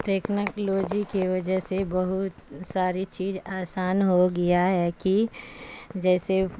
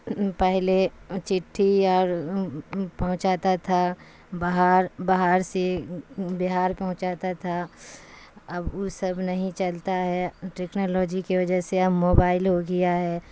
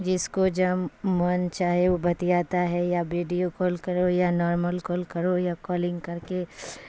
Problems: constant background noise